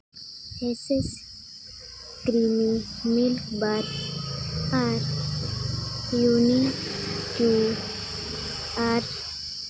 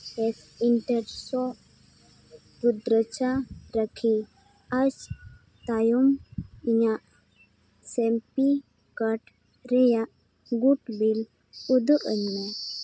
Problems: background sounds at intervals